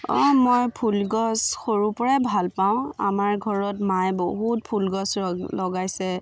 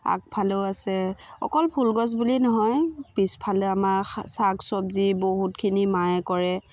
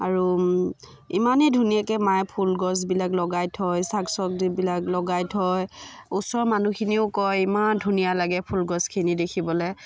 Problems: constant background noise, background conversations at intervals